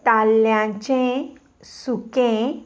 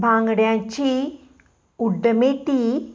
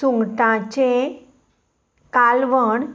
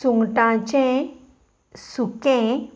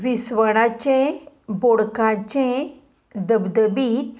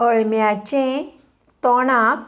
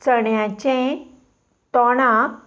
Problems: none marked